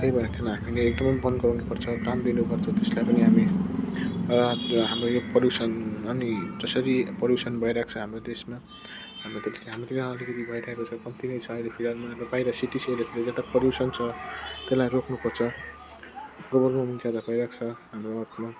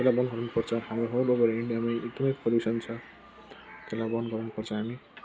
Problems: constant background noise